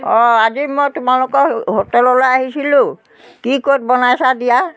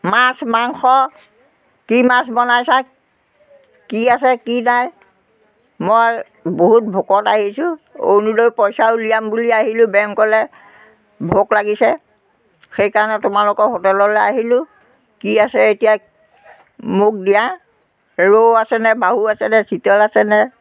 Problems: continuous background conversations